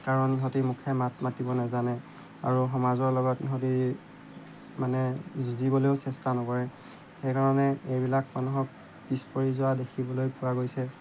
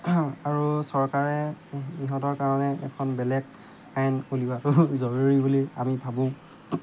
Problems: background sounds at intervals